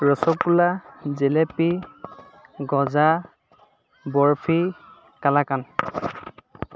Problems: constant background noise, background conversations at intervals